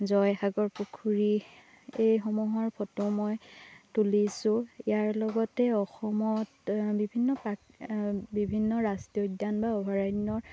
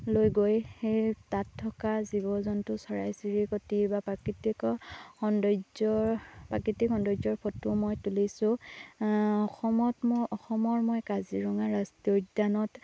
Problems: constant background noise